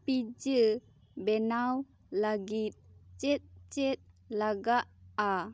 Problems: none marked